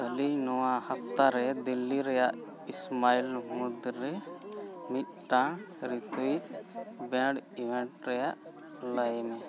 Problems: background sounds at intervals, continuous background conversations